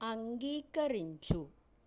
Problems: low volume